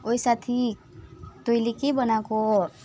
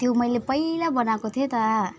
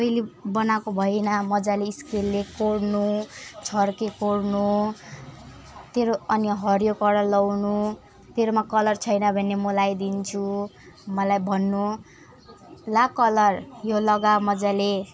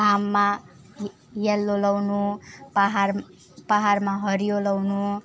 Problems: none marked